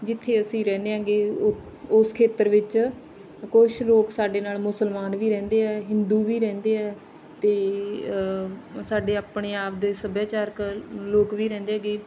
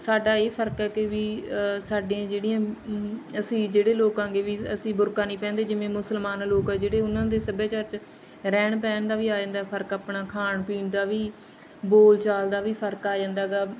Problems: background sounds at intervals, background conversations at intervals